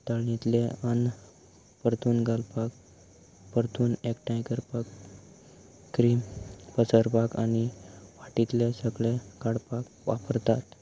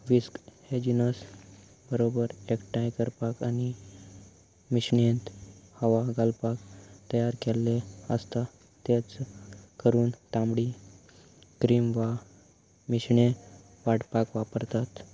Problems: none marked